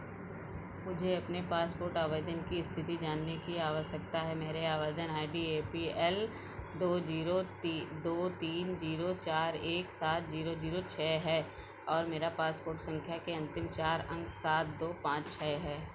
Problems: none marked